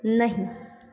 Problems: constant background noise